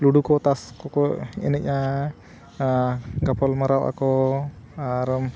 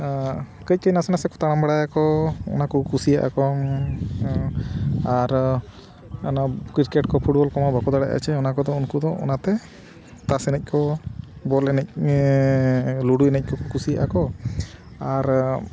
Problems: none marked